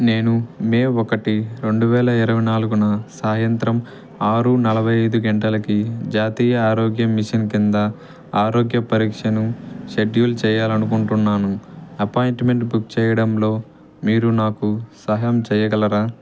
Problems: none marked